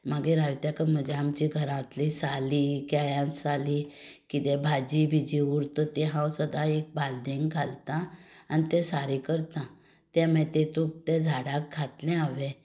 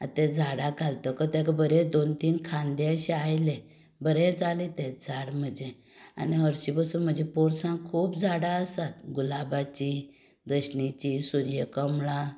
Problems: background sounds at intervals